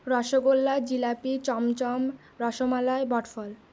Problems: none marked